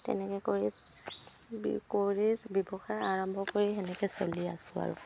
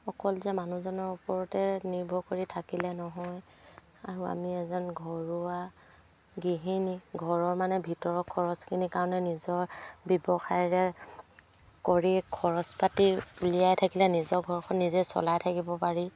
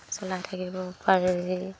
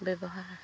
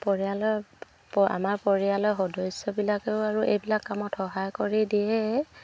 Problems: none marked